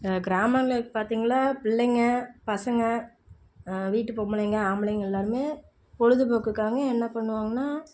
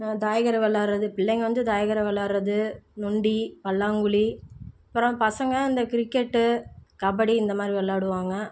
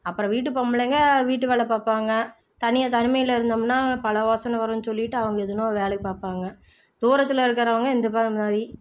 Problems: low volume